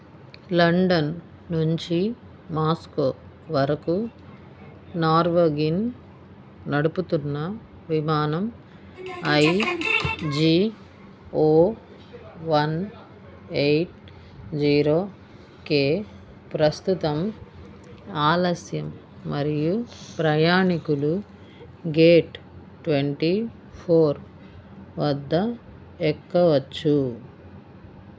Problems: background conversations at intervals